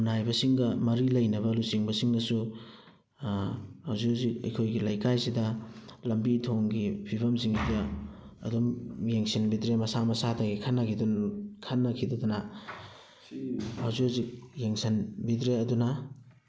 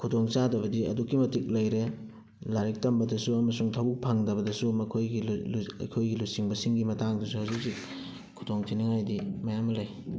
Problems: background sounds at intervals, background conversations at intervals